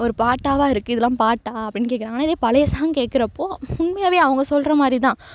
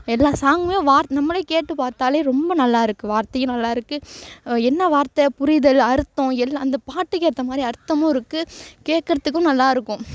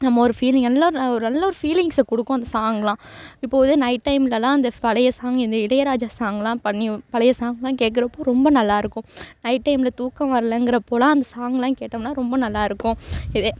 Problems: background sounds at intervals